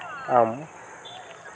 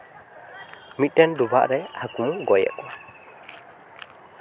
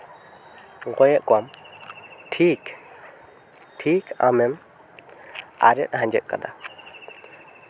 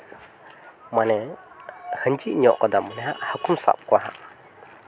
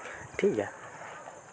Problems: constant background noise, background conversations at intervals